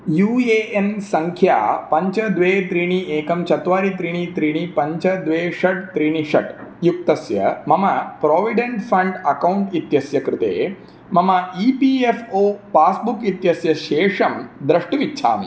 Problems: none marked